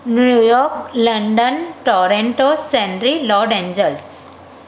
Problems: constant background noise, echo